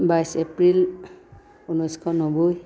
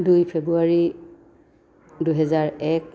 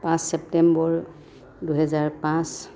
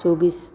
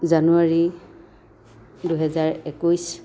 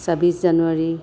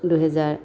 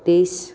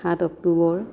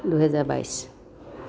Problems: constant background noise